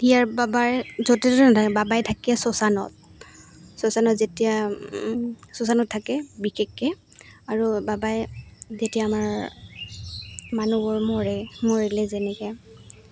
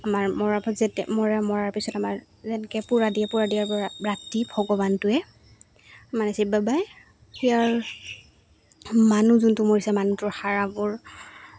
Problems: background sounds at intervals